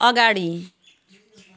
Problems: background sounds at intervals